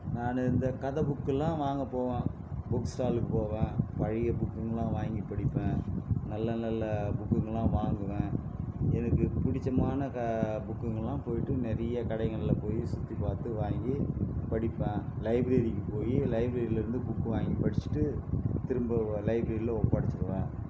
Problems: constant background noise